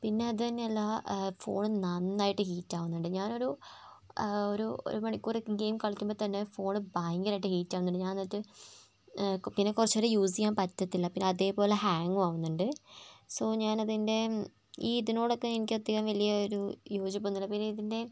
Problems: low volume